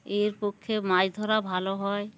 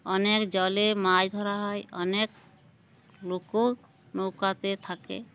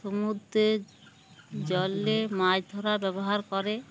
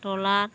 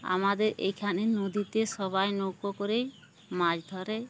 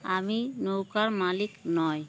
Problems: background sounds at intervals